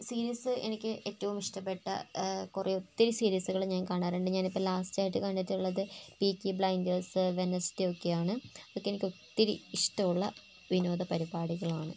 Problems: none marked